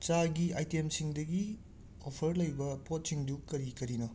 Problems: background sounds at intervals